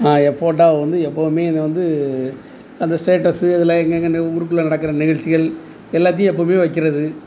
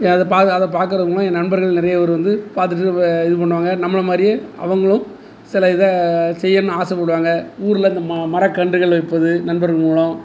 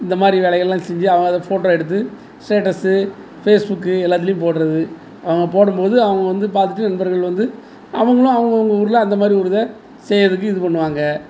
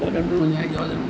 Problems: background conversations at intervals